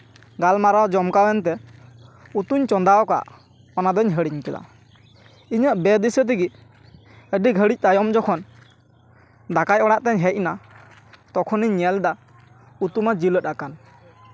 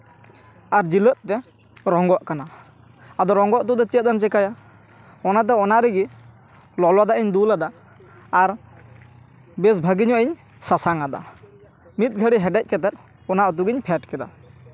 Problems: none marked